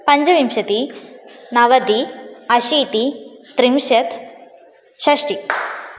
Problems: constant background noise